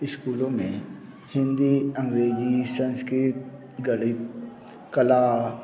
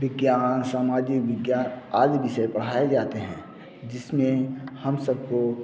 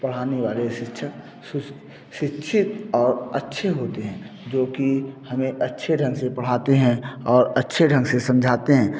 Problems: none marked